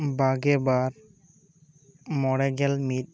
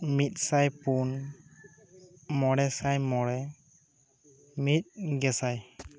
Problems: none marked